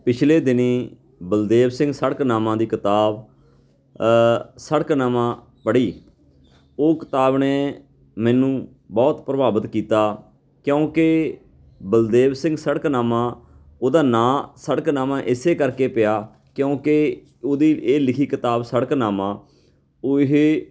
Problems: background sounds at intervals, background conversations at intervals